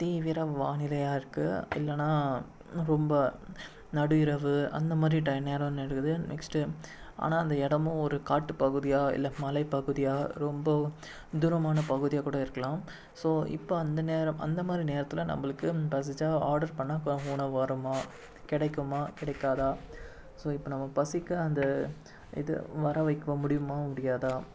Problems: background sounds at intervals